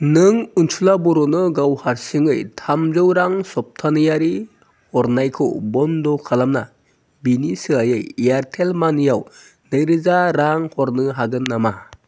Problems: none marked